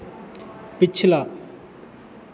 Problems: none marked